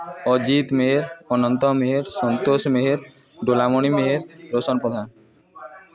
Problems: continuous background conversations